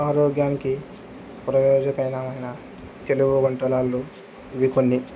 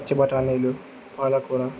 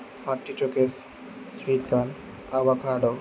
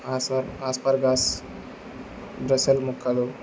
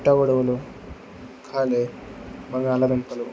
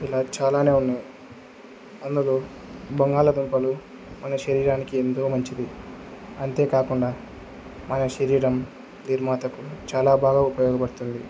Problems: constant background noise